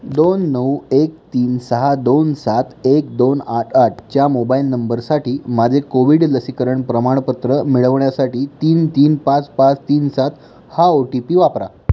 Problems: background sounds at intervals